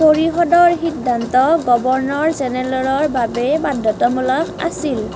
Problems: constant background noise